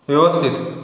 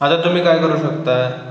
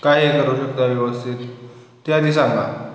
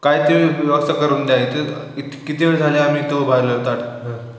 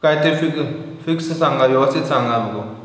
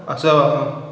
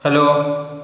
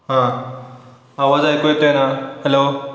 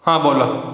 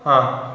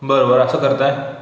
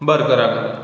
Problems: constant background noise, echo